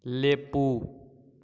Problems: none marked